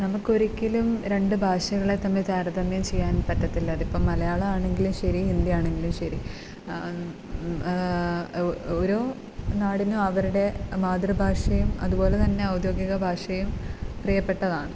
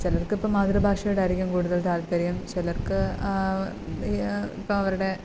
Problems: constant background noise